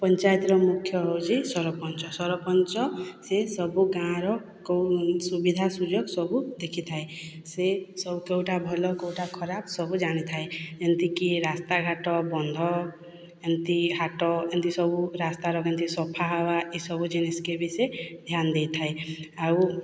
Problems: none marked